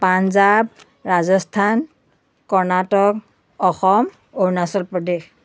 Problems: constant background noise